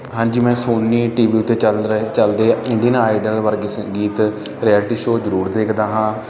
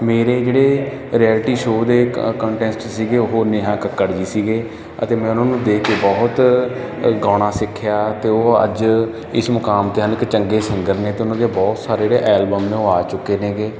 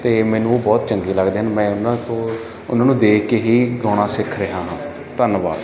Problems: background sounds at intervals